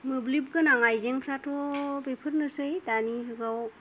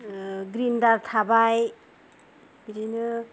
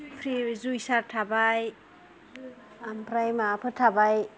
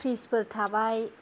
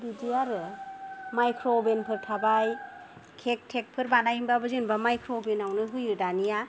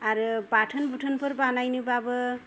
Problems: low volume